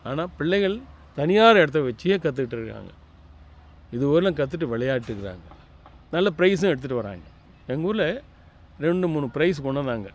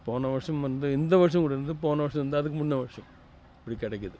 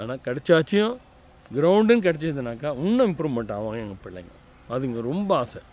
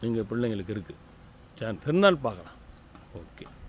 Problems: background conversations at intervals